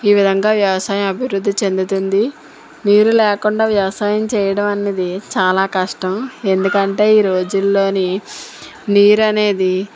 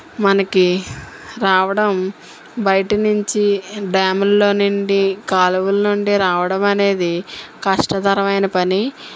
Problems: none marked